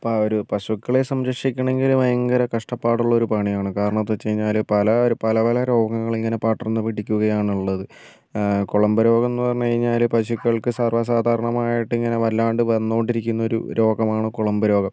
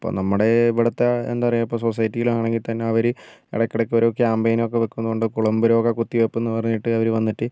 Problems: none marked